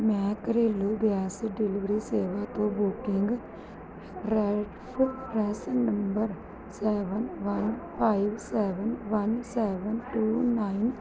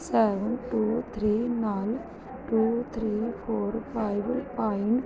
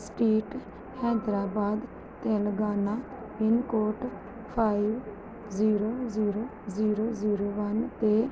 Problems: none marked